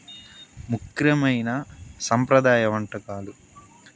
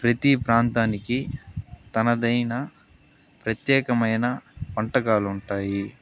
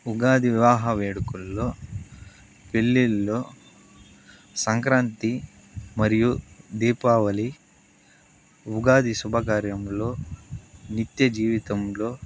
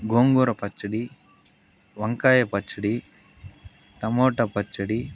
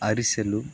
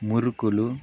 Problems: constant background noise